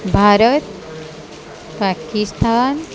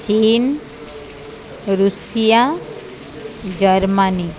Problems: constant background noise, continuous background conversations